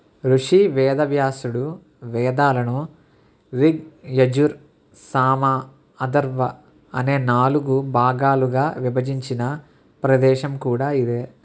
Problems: none marked